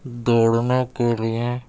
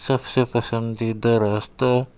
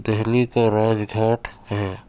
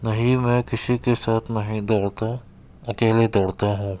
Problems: background sounds at intervals